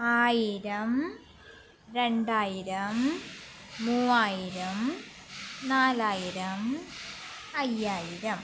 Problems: none marked